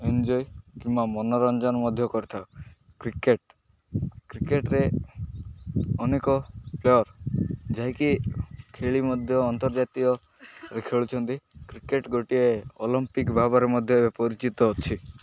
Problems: none marked